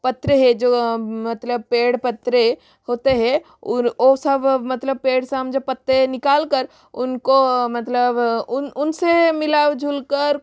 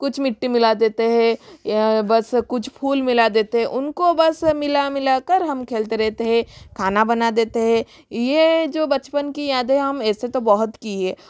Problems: background sounds at intervals, echo